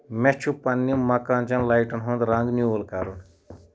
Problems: none marked